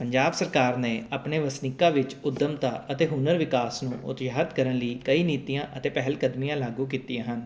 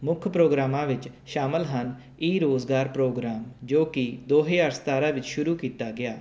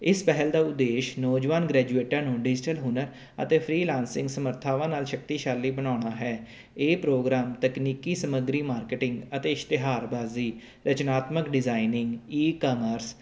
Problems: none marked